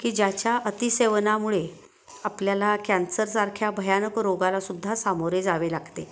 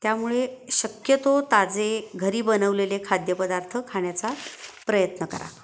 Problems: none marked